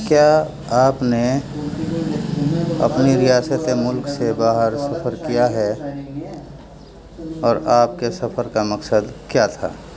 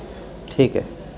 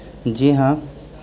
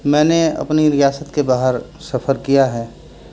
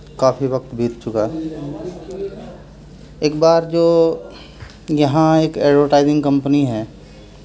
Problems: constant background noise